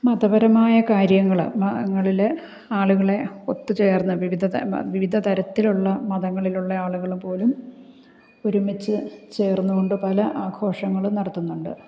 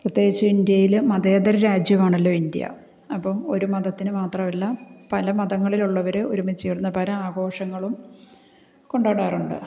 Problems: none marked